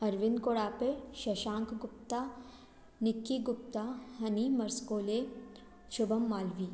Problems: background sounds at intervals